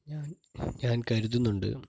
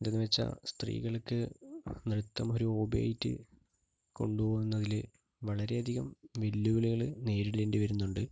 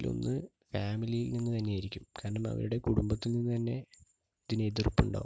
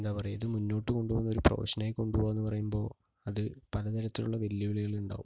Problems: low volume